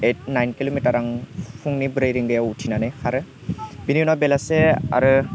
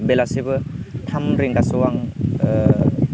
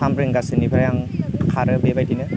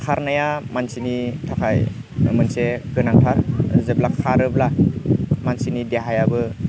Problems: constant background noise